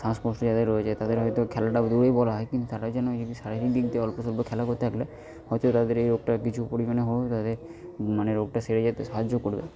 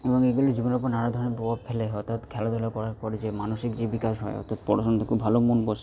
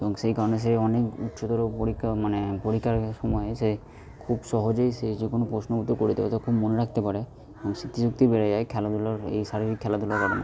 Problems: background conversations at intervals